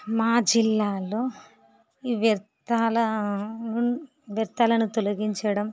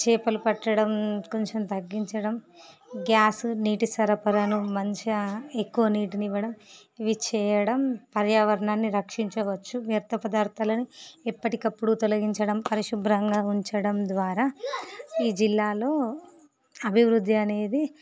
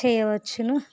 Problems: background sounds at intervals